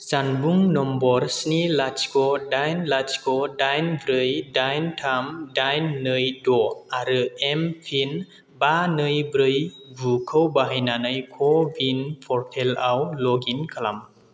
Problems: constant background noise